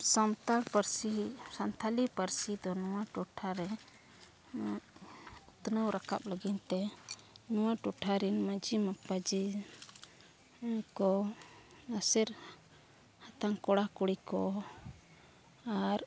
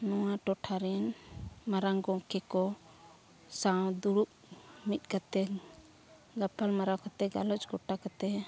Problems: background conversations at intervals